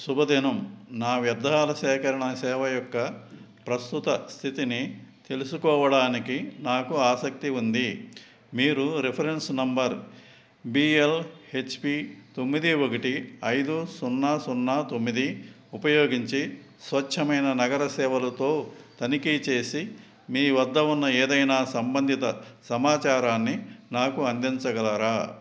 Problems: none marked